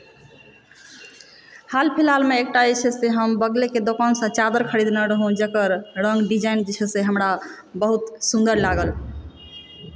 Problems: background sounds at intervals